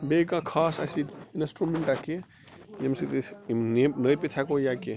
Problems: constant background noise